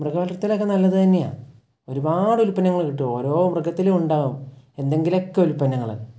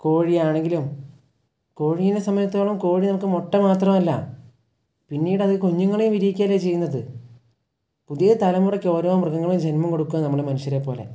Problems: none marked